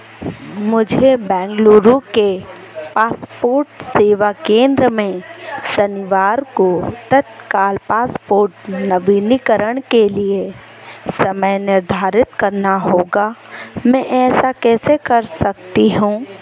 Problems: none marked